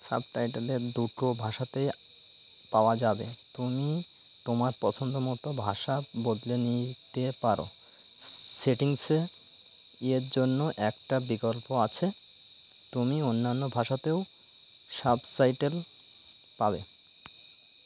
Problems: none marked